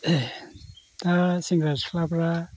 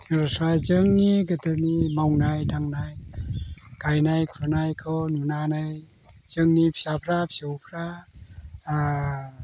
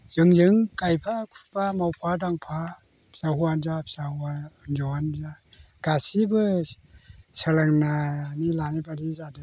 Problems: constant background noise